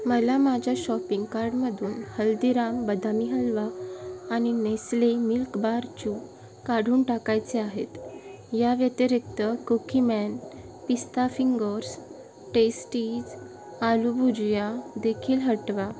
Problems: none marked